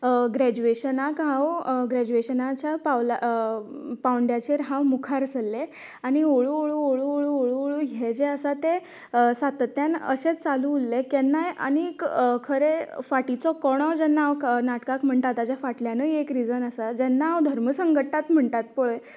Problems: continuous background conversations